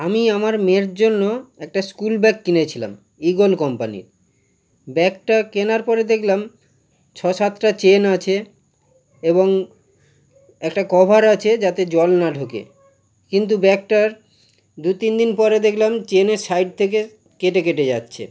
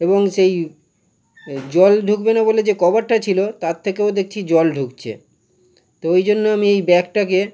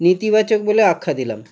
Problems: none marked